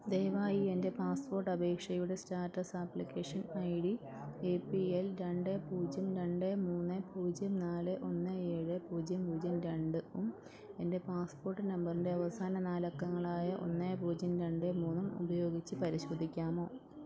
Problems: none marked